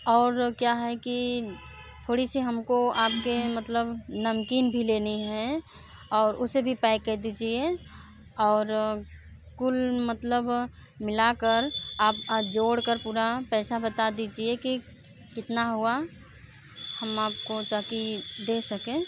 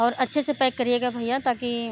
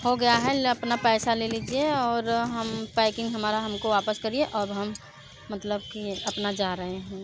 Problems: background sounds at intervals